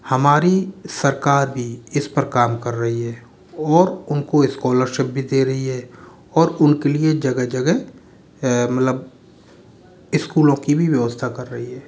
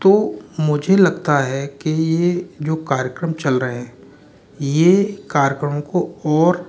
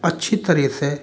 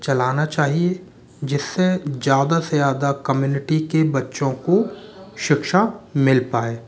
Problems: none marked